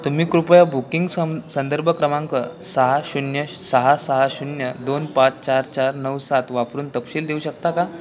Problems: constant background noise, continuous background conversations